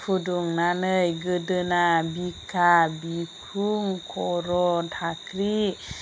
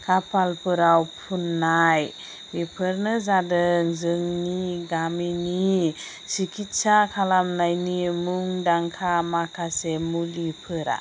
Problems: constant background noise